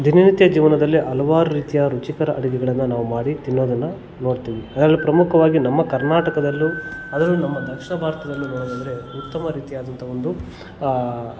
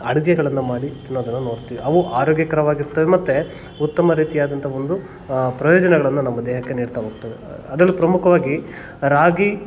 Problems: background sounds at intervals, background conversations at intervals